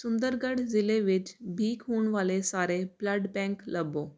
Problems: constant background noise